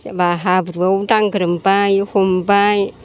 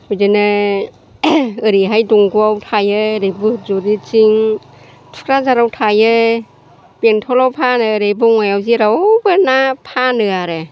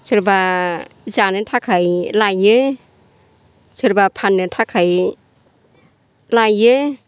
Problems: constant background noise